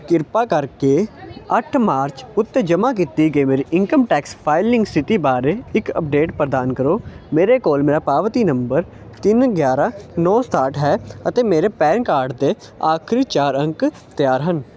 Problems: background conversations at intervals